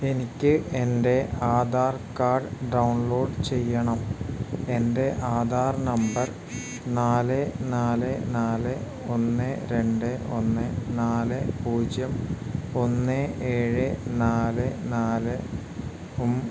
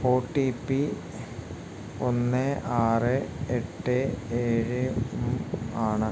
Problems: constant background noise